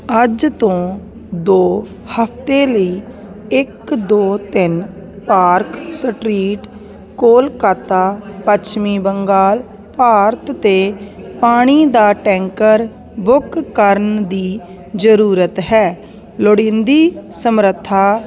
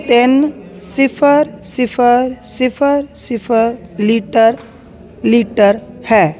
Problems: constant background noise